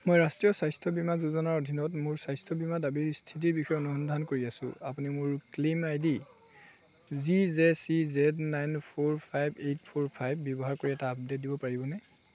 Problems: none marked